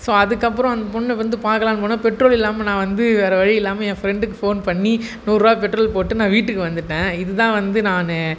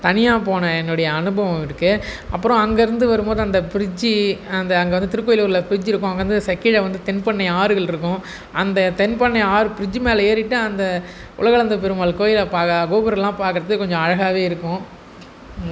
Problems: background sounds at intervals